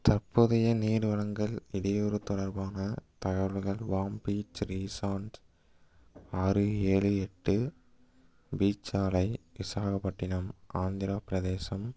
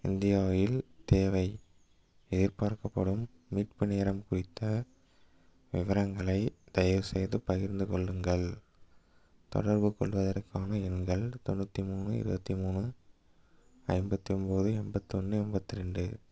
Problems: none marked